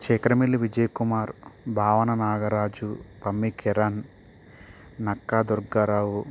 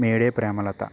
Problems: constant background noise